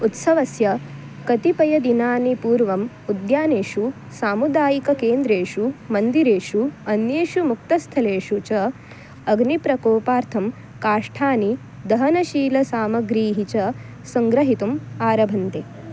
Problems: constant background noise